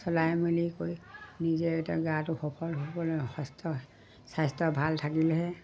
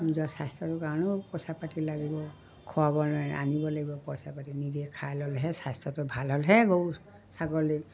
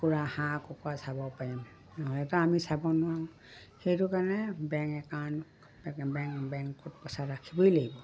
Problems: background sounds at intervals, background conversations at intervals